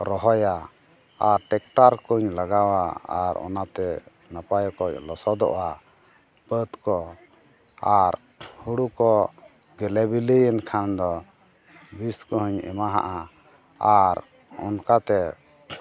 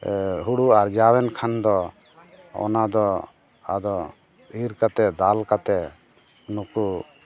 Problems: continuous background conversations